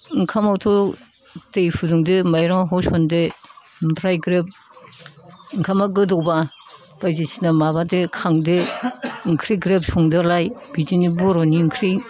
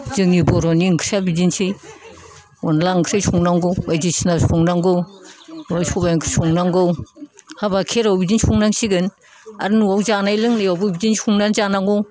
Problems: low volume